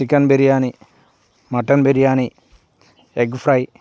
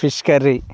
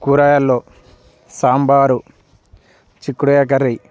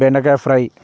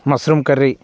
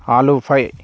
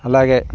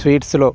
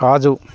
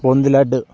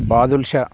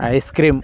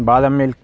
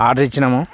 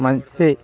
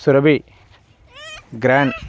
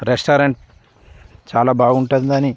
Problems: background sounds at intervals, background conversations at intervals